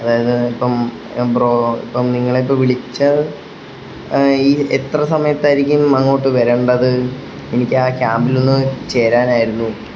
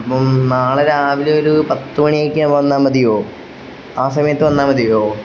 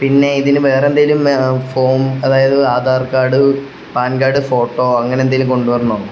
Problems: constant background noise